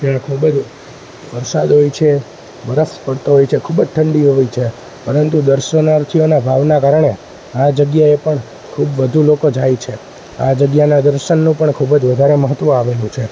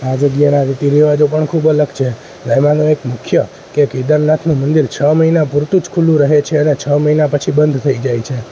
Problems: constant background noise